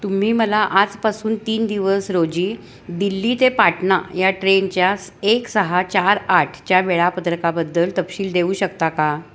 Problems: constant background noise, continuous background conversations